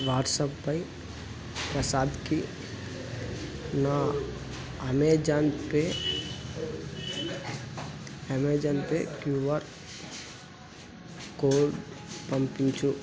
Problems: constant background noise